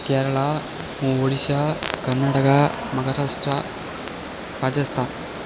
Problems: constant background noise